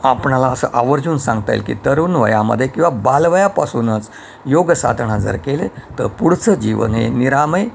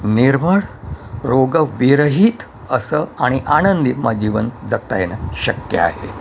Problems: constant background noise